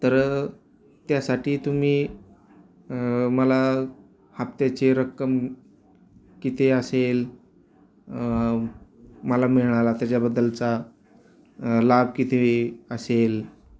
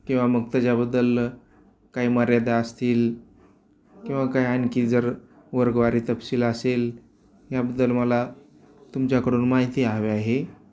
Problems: none marked